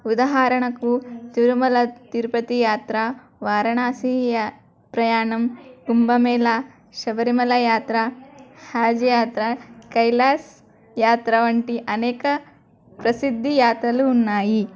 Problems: background sounds at intervals, background conversations at intervals